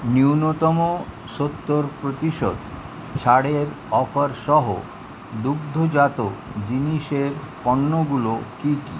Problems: none marked